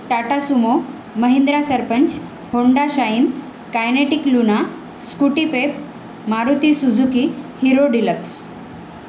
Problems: constant background noise